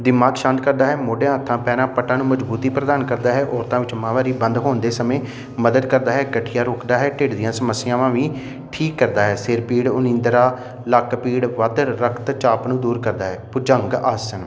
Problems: constant background noise